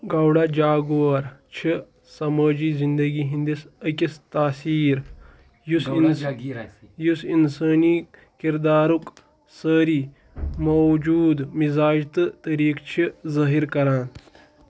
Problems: background conversations at intervals